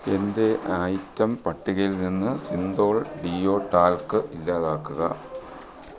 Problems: background sounds at intervals